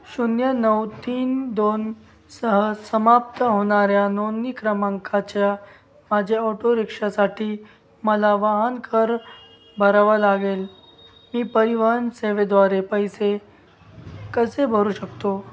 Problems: background sounds at intervals, background conversations at intervals